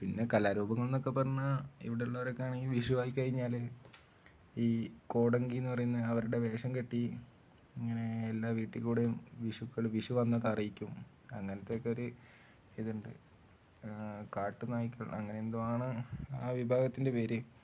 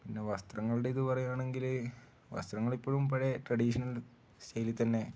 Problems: low volume